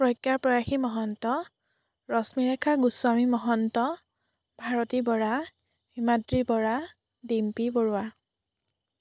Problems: none marked